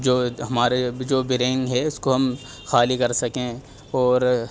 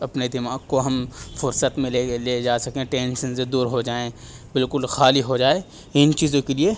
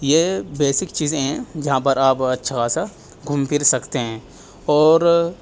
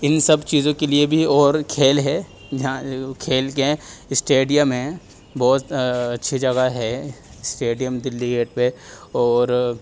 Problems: background sounds at intervals